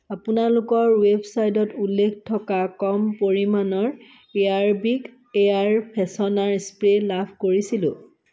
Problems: none marked